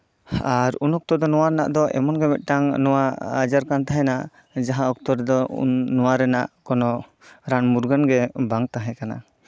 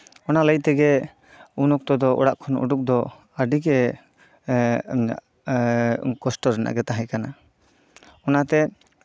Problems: background sounds at intervals